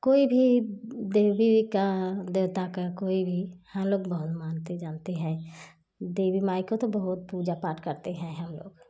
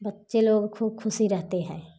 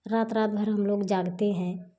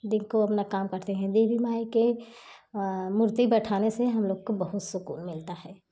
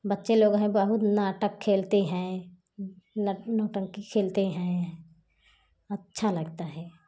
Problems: none marked